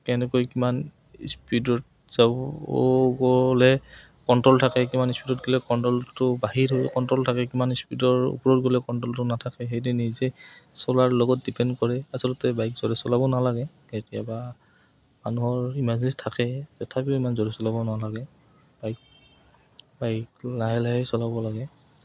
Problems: background sounds at intervals